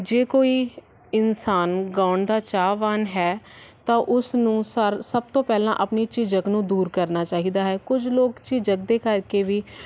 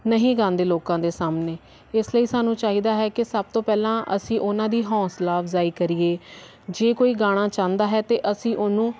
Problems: none marked